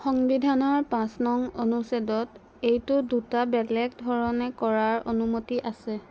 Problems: constant background noise